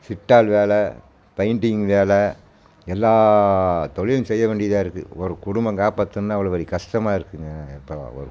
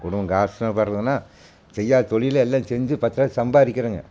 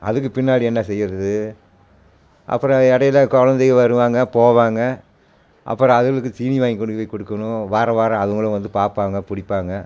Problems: constant background noise